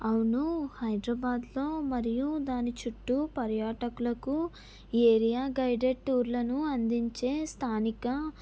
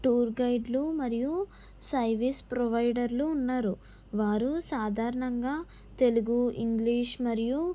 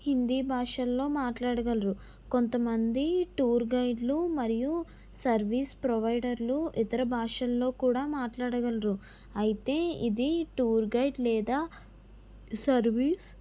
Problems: none marked